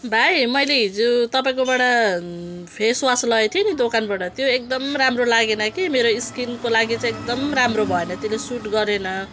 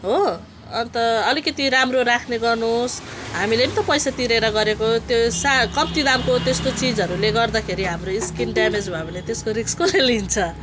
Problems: background sounds at intervals